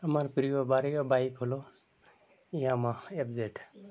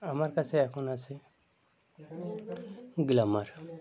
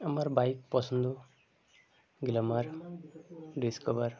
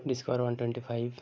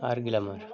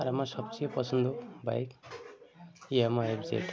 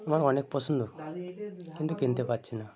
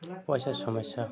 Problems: constant background noise, background conversations at intervals